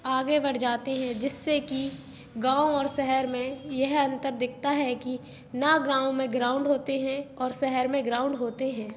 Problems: constant background noise